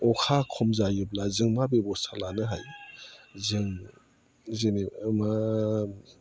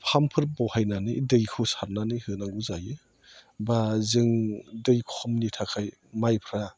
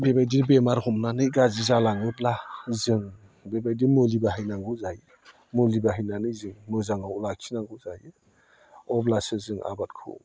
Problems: low volume